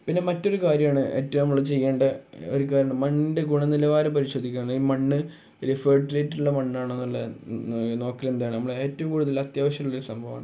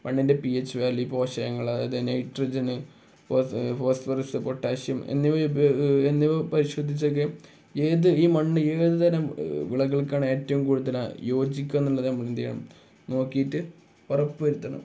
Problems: none marked